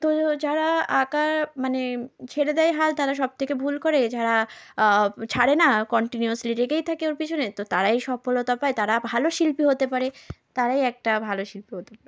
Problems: none marked